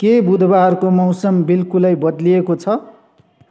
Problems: background sounds at intervals